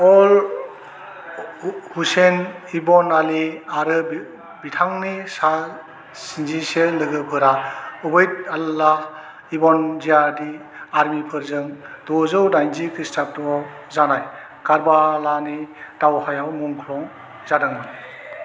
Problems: constant background noise